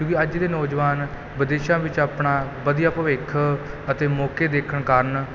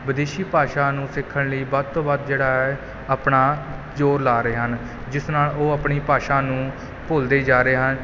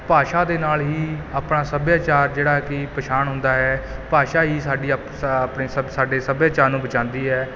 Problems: background sounds at intervals